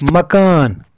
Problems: constant background noise